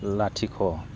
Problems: low volume